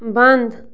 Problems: background sounds at intervals